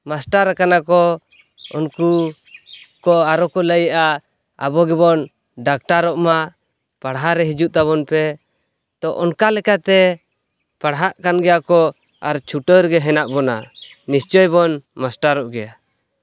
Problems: none marked